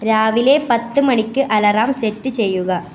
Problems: background sounds at intervals